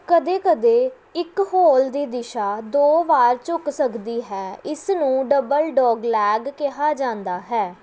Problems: background sounds at intervals